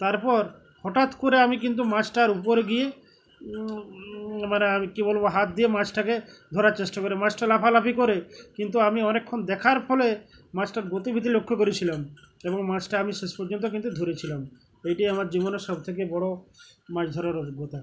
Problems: constant background noise